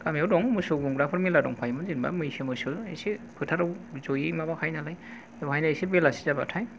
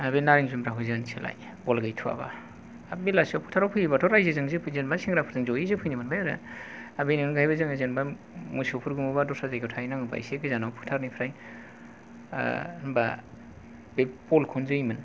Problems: none marked